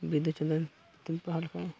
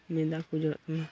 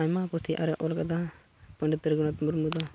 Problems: background sounds at intervals, low volume